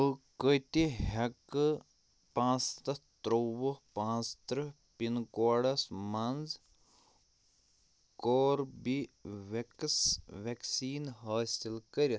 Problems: none marked